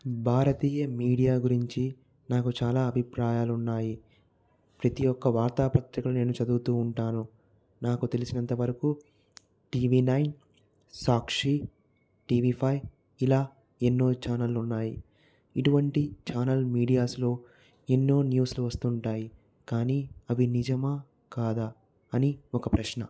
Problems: none marked